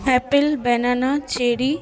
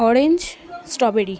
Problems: background sounds at intervals, continuous background conversations